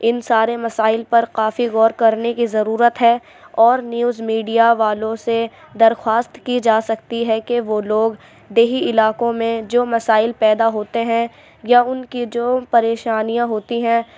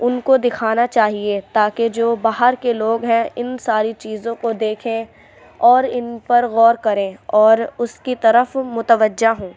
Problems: none marked